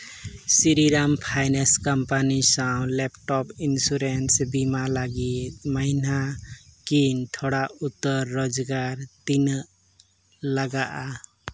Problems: none marked